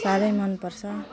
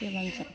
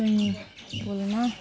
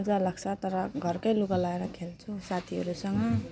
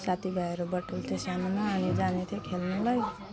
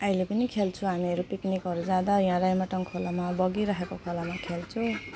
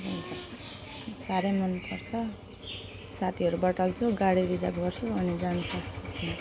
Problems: background sounds at intervals